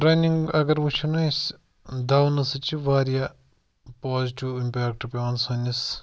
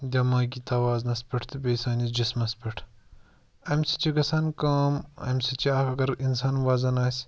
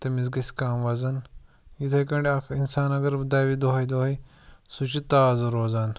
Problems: background sounds at intervals